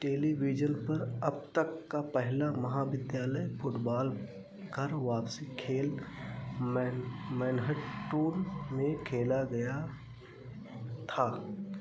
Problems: constant background noise